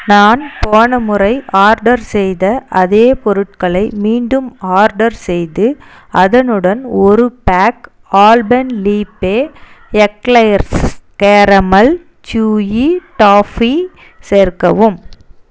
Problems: constant background noise